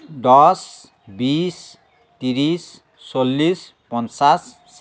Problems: constant background noise